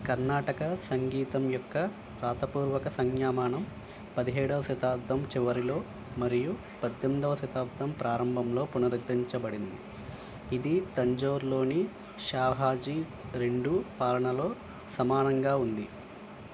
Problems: constant background noise